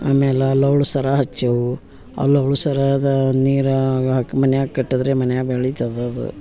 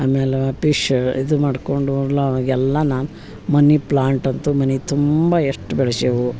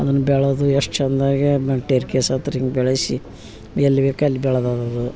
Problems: background sounds at intervals